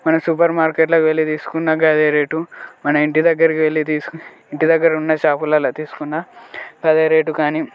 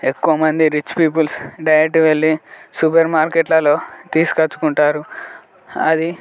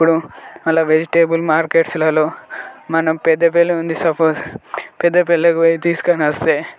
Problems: background sounds at intervals, continuous background conversations